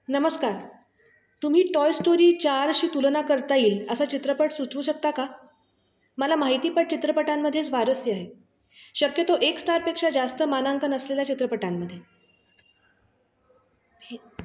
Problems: constant background noise, background conversations at intervals